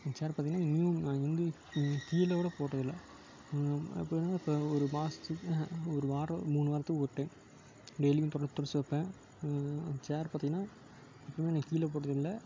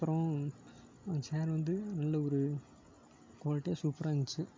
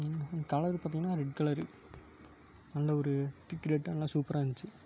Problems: constant background noise